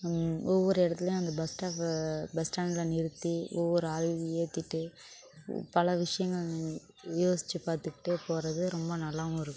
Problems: constant background noise, background conversations at intervals